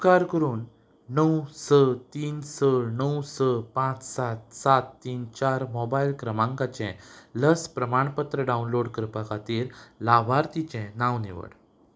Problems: background sounds at intervals